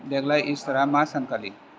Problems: constant background noise